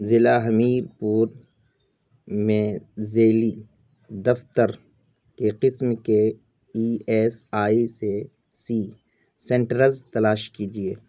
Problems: constant background noise